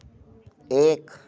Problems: background sounds at intervals